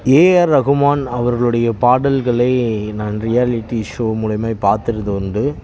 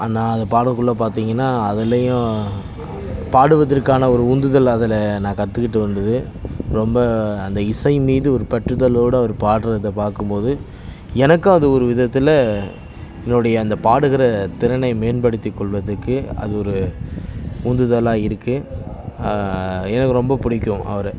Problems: continuous background conversations